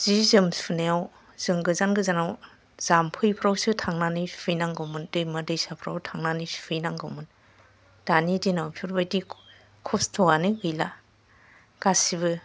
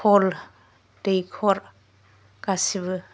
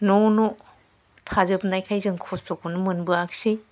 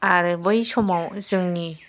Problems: none marked